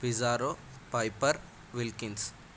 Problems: constant background noise